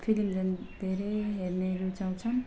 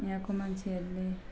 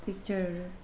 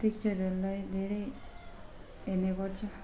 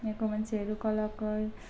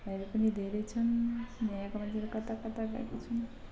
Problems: background sounds at intervals, low volume